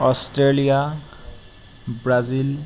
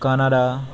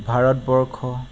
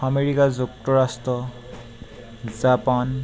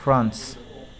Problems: constant background noise